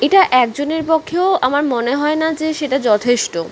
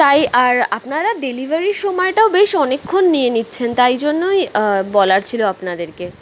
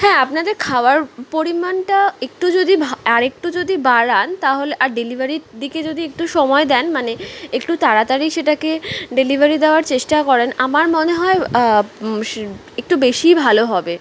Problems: background sounds at intervals